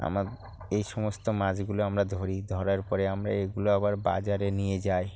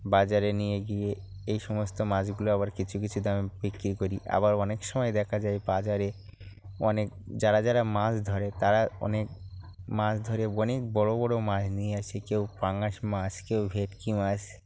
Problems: background sounds at intervals